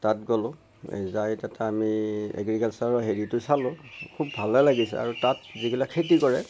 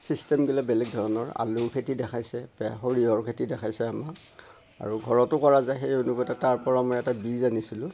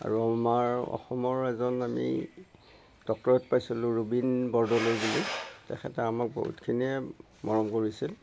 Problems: none marked